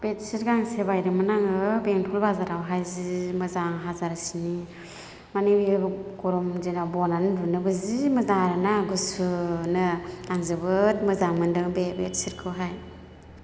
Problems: none marked